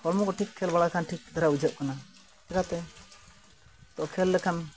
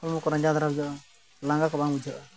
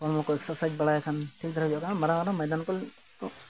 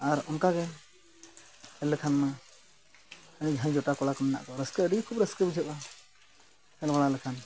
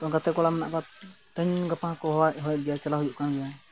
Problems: background sounds at intervals